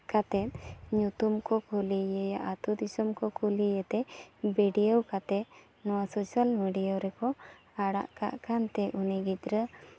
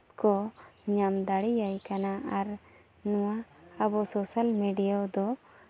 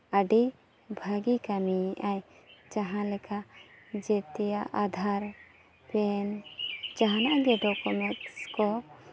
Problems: background sounds at intervals